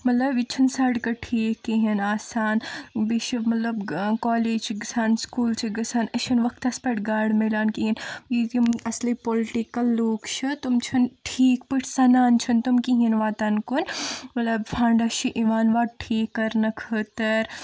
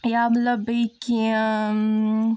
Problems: none marked